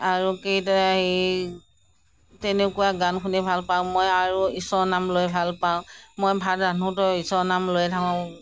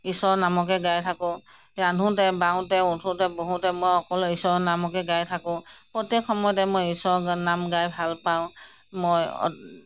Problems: none marked